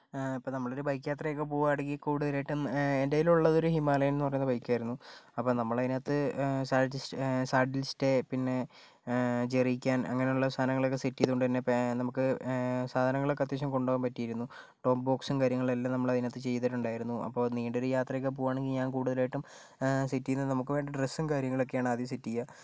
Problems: none marked